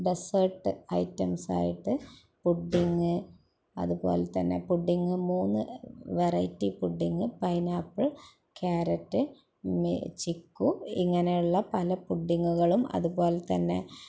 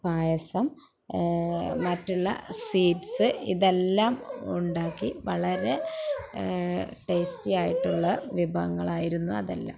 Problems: background sounds at intervals